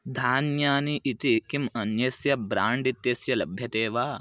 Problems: none marked